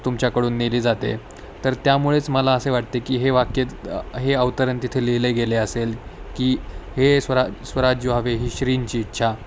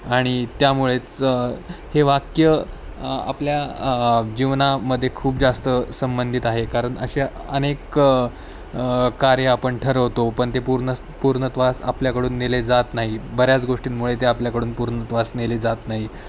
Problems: constant background noise